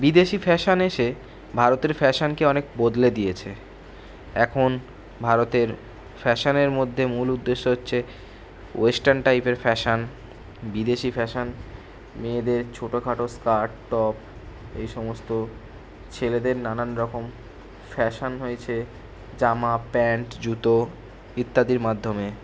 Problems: none marked